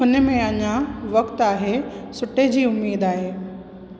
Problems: constant background noise, echo